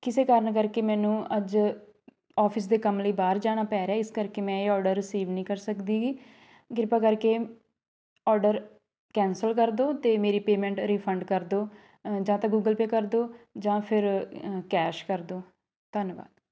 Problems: background conversations at intervals